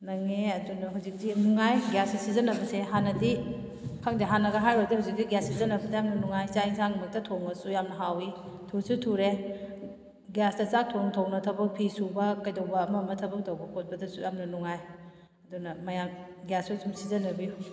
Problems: none marked